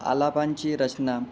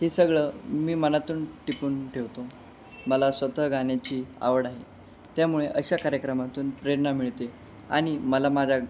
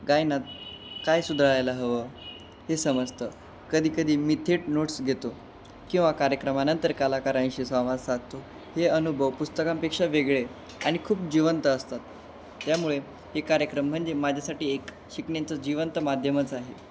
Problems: constant background noise